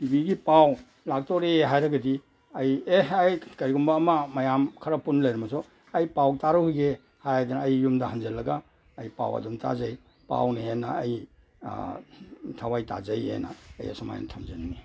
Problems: background sounds at intervals